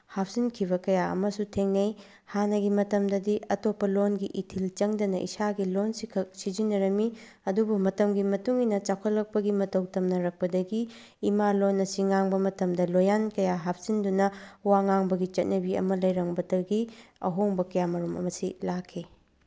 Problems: background sounds at intervals